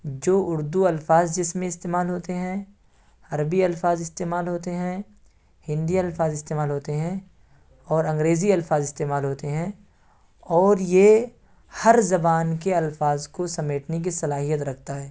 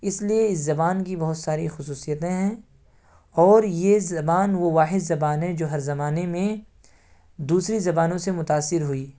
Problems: none marked